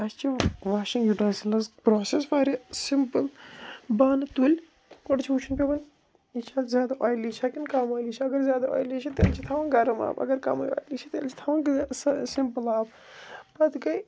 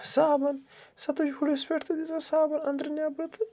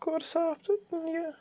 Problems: none marked